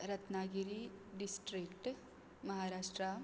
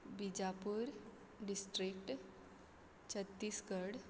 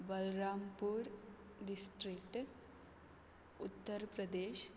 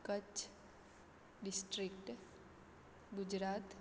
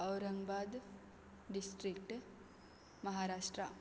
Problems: background sounds at intervals